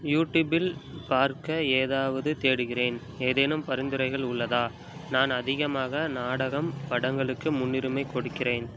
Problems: none marked